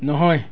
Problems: continuous background conversations